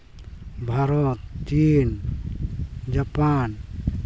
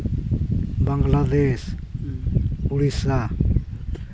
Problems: constant background noise, background conversations at intervals